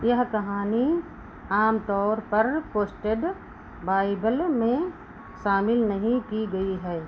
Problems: constant background noise